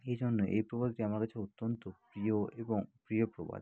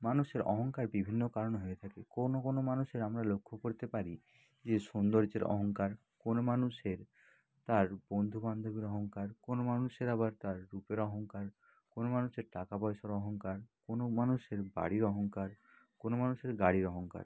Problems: constant background noise, background conversations at intervals